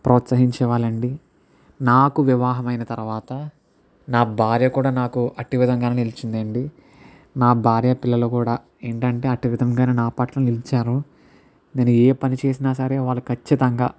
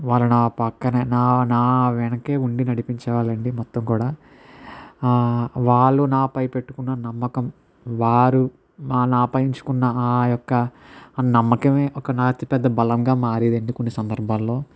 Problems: none marked